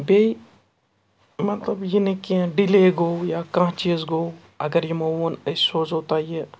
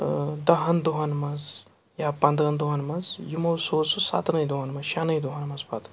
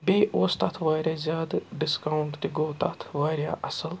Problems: background sounds at intervals